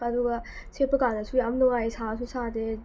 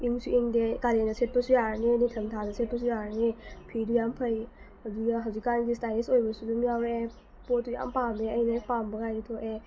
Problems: constant background noise